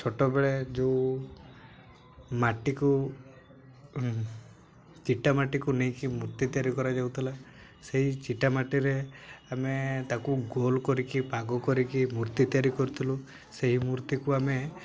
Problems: none marked